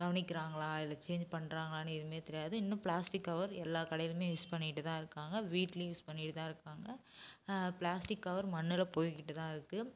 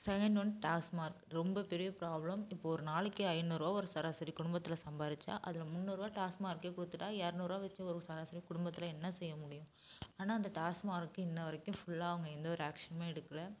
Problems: background sounds at intervals